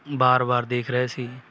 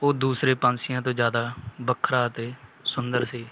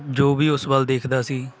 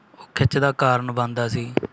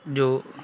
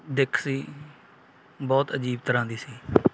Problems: background sounds at intervals